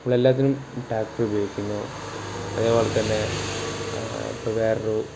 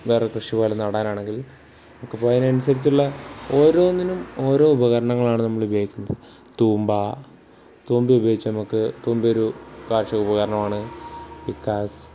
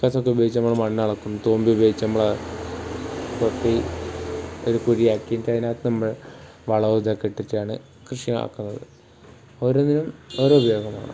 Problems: background sounds at intervals